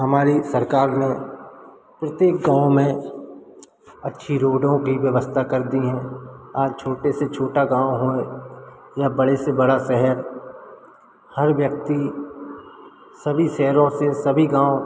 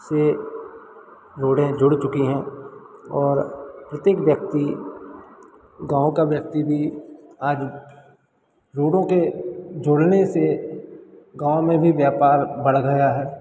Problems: constant background noise